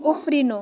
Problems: constant background noise